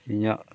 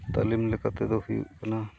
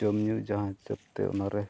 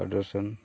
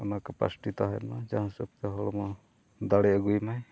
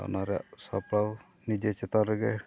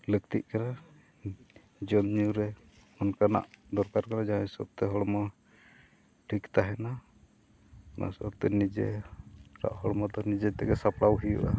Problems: none marked